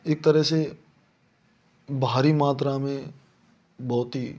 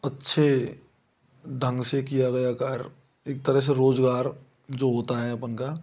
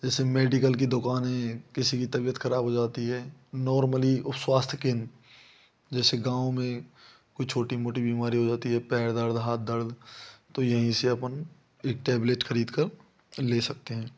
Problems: none marked